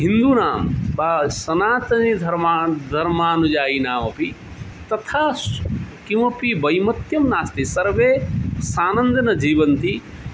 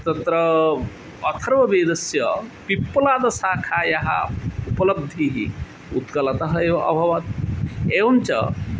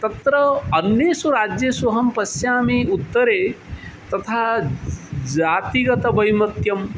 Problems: constant background noise